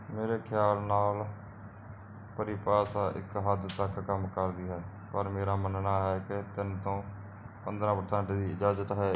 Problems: none marked